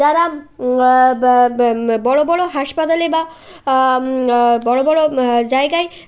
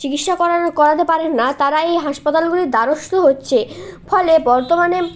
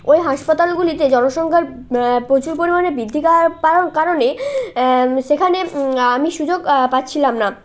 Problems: constant background noise, background conversations at intervals